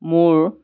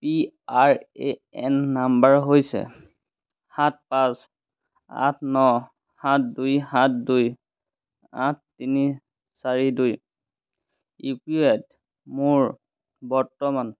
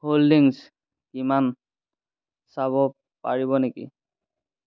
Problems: constant background noise